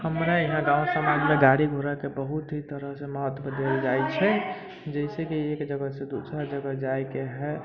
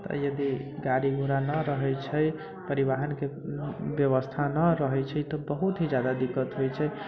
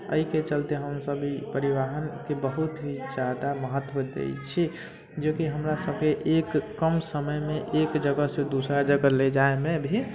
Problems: constant background noise